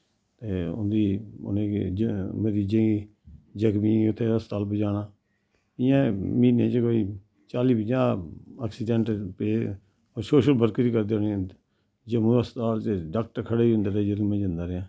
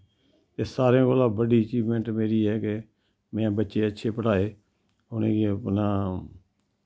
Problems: background sounds at intervals